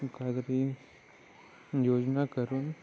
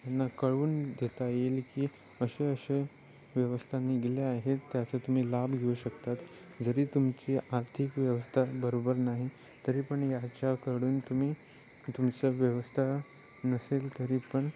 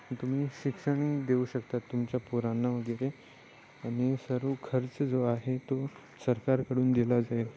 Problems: none marked